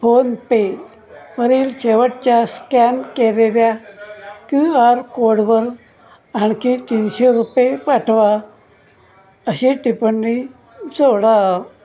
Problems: background conversations at intervals